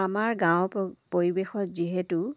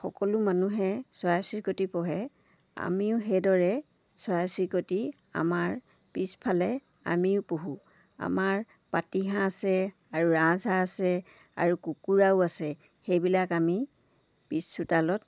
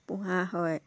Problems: background sounds at intervals